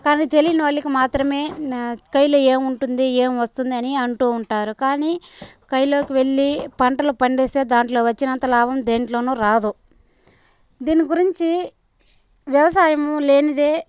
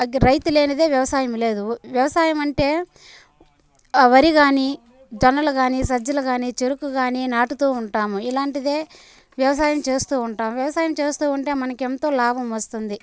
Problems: constant background noise, background conversations at intervals